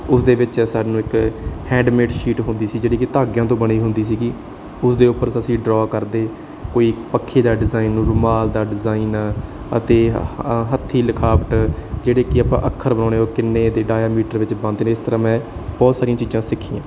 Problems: background sounds at intervals